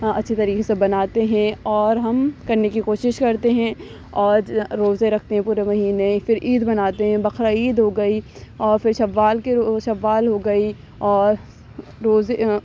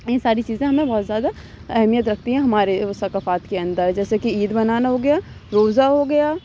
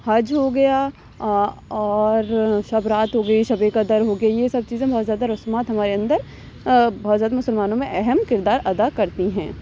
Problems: constant background noise